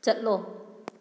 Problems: none marked